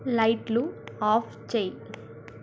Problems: none marked